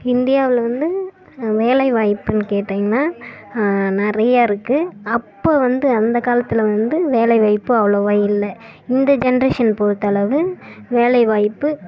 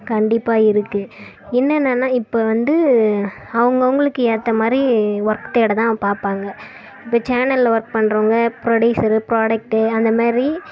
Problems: background sounds at intervals